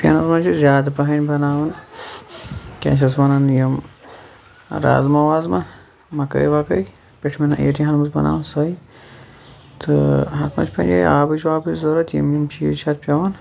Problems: background sounds at intervals, background conversations at intervals